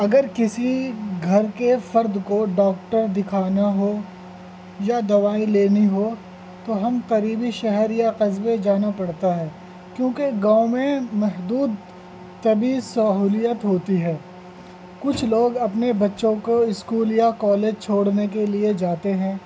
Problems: constant background noise, low volume